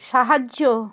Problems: none marked